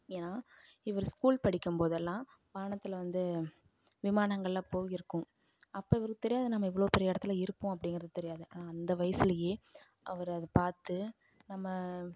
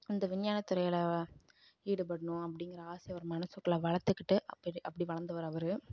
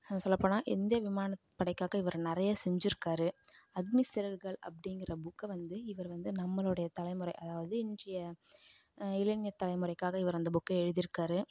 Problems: low volume